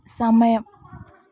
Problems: background sounds at intervals